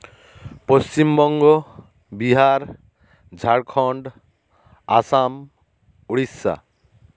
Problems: constant background noise